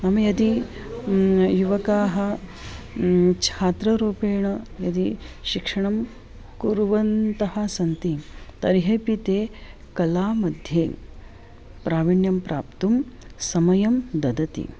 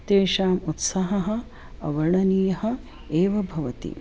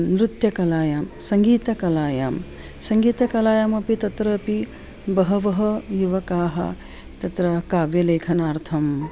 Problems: constant background noise